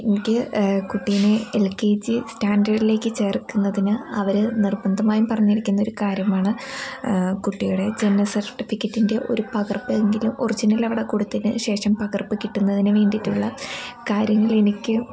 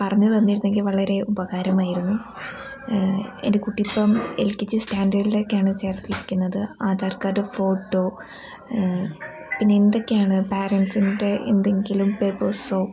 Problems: constant background noise